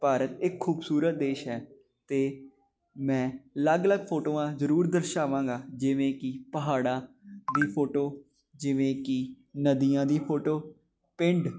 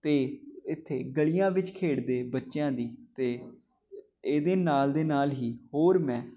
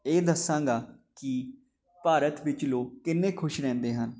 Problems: none marked